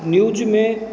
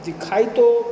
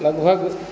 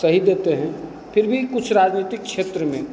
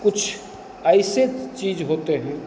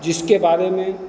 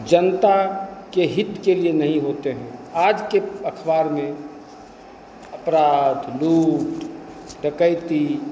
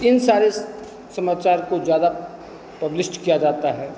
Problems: constant background noise